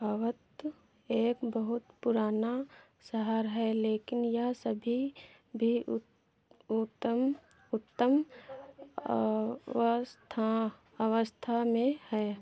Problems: background sounds at intervals